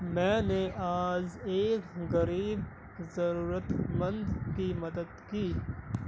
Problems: constant background noise, low volume